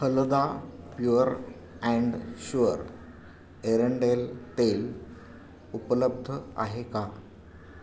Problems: none marked